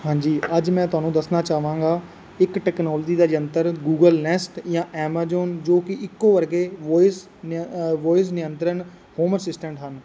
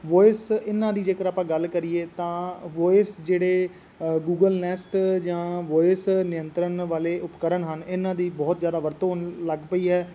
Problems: constant background noise